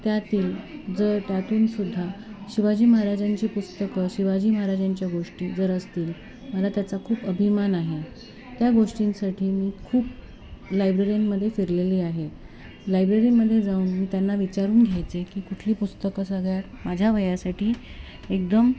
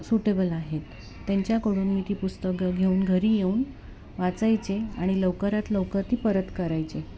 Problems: constant background noise, continuous background conversations